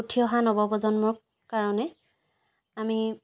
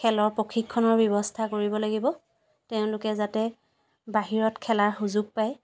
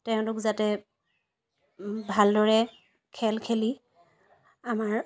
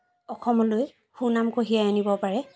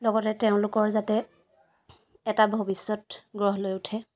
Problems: none marked